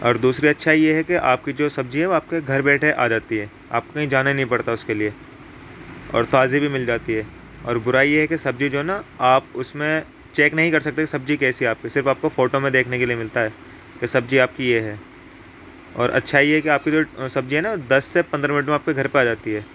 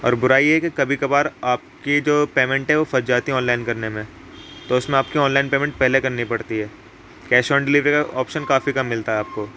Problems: constant background noise